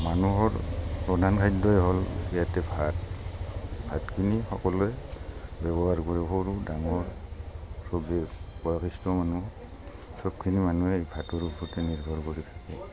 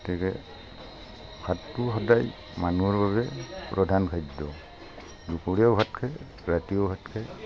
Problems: constant background noise